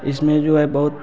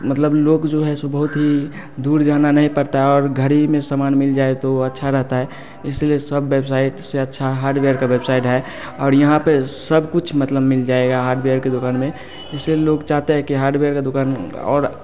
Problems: constant background noise, continuous background conversations